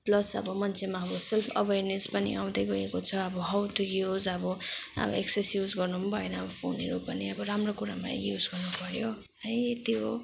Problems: background sounds at intervals